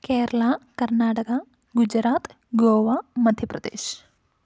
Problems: low volume